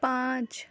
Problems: none marked